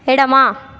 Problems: constant background noise